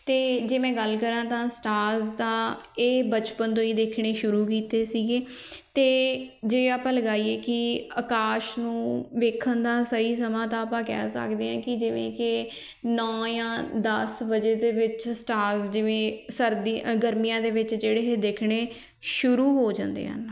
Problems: none marked